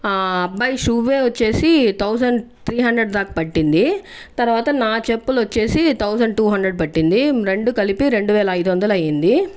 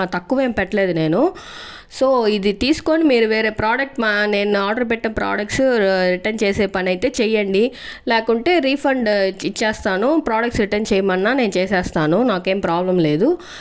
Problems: background sounds at intervals